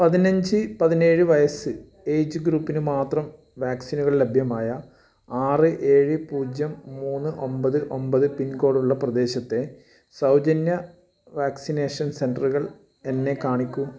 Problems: background sounds at intervals